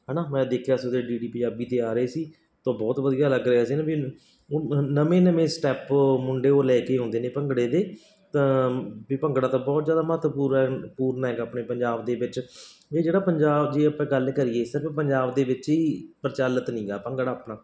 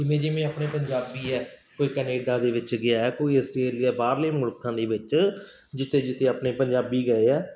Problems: background sounds at intervals